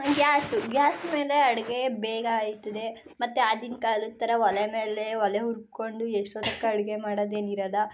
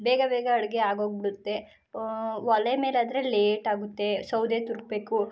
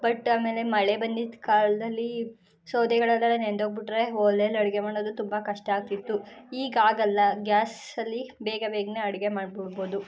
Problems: background sounds at intervals